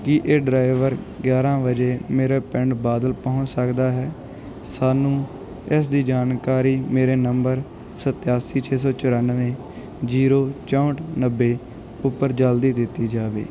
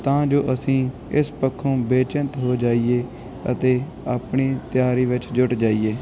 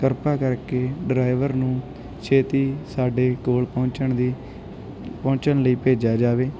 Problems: background sounds at intervals